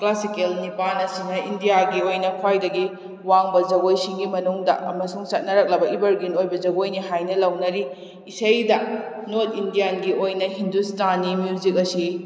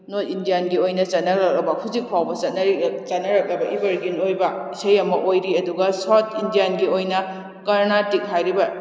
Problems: none marked